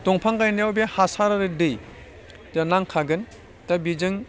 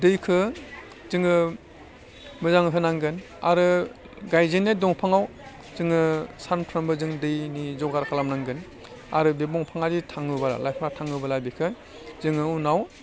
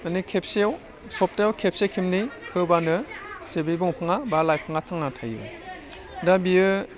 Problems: none marked